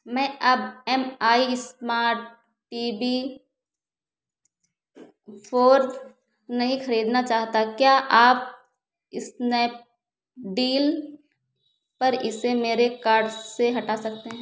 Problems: constant background noise